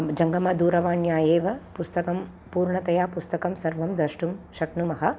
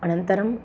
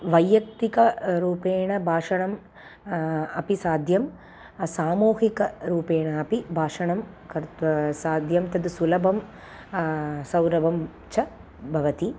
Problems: constant background noise